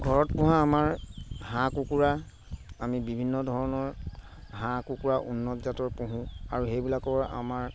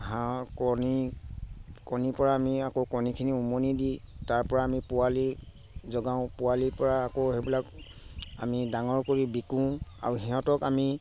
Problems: constant background noise